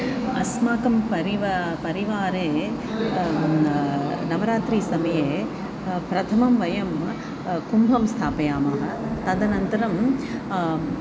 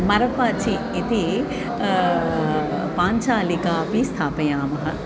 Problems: none marked